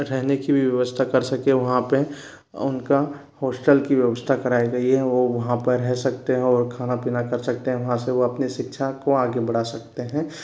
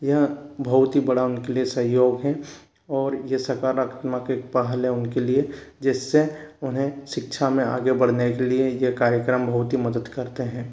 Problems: background sounds at intervals